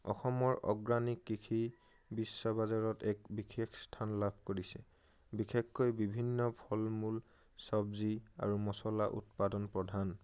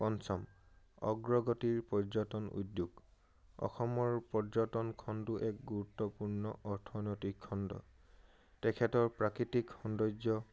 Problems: none marked